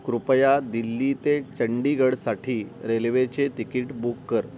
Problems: constant background noise